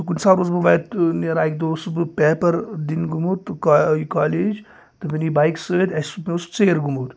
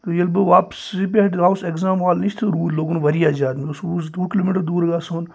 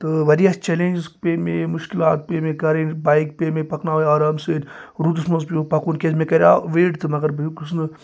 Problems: none marked